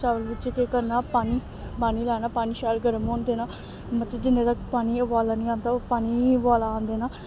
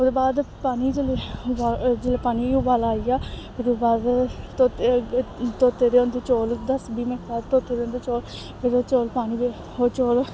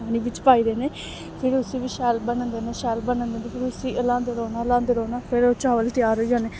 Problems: none marked